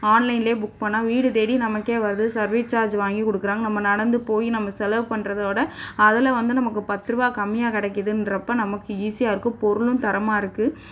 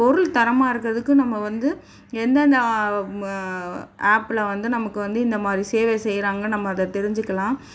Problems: none marked